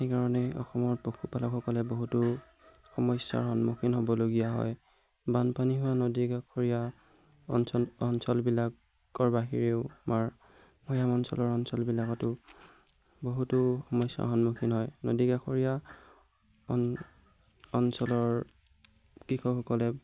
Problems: background sounds at intervals